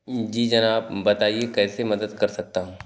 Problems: none marked